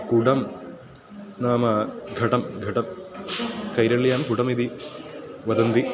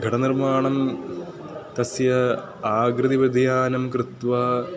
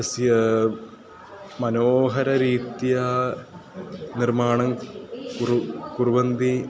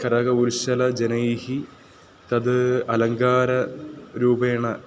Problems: constant background noise, continuous background conversations